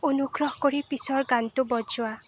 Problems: none marked